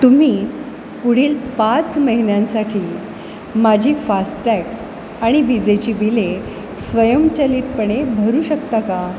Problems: constant background noise